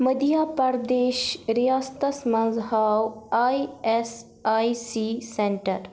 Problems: none marked